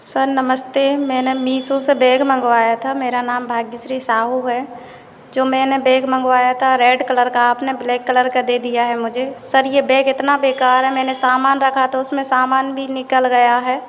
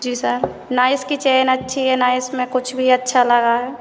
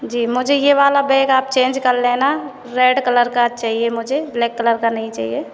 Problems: none marked